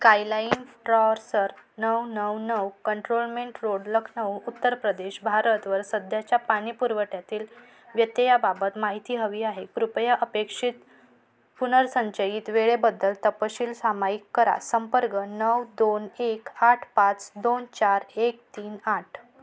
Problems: background sounds at intervals